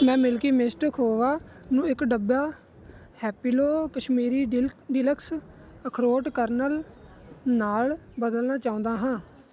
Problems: none marked